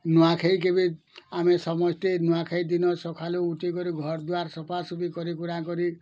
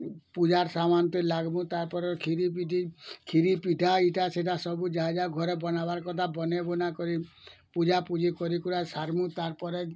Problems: none marked